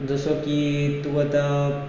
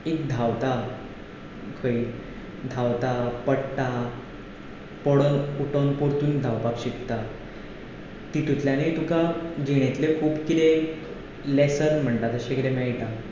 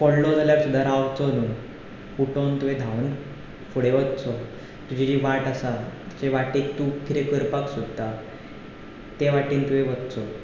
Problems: none marked